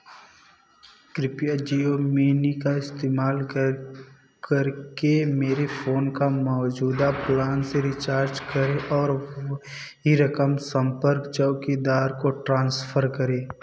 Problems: background sounds at intervals